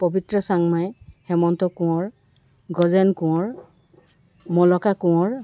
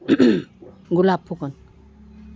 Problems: background sounds at intervals